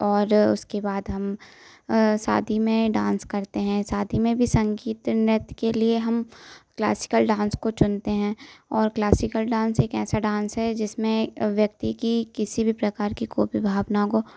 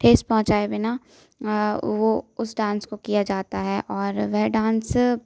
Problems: constant background noise